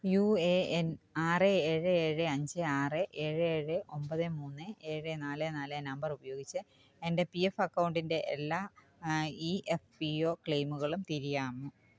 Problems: background sounds at intervals